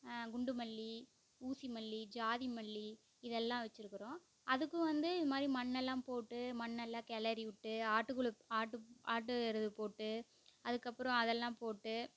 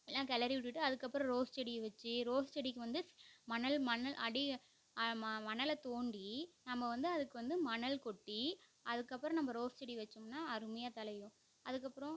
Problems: low volume